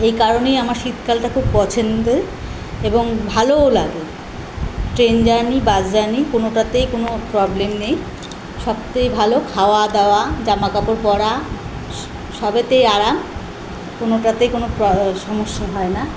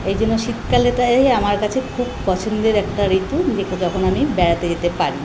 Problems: constant background noise